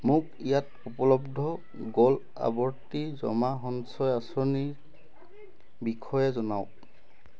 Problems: background sounds at intervals